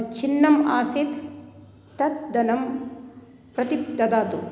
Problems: none marked